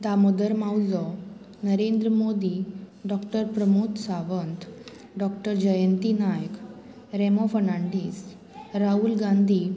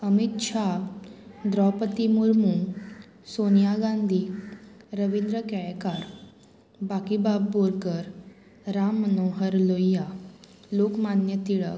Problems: none marked